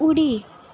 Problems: constant background noise